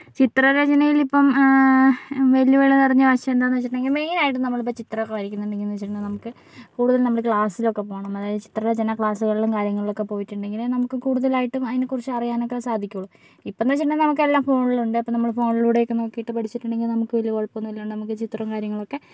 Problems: none marked